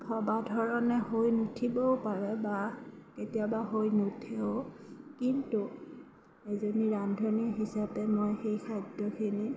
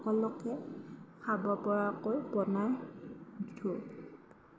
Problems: constant background noise